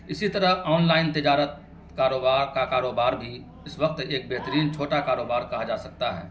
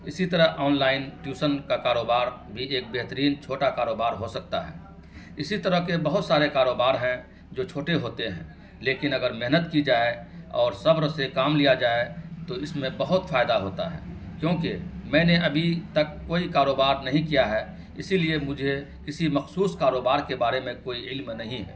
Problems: constant background noise